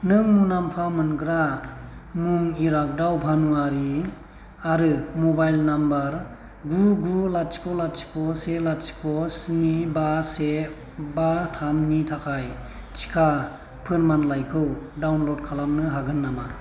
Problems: none marked